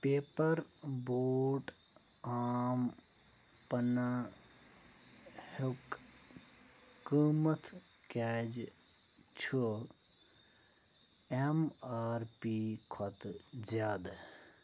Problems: low volume